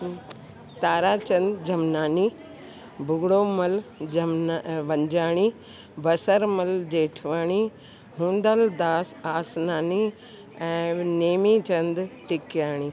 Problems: constant background noise